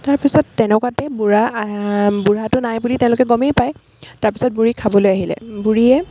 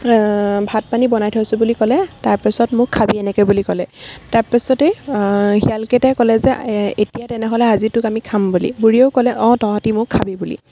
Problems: none marked